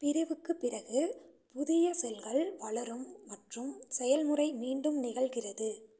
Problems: none marked